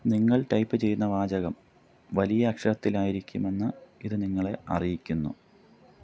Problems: low volume